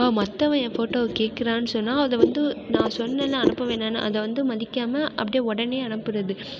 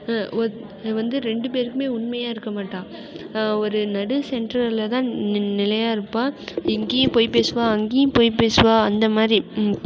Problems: constant background noise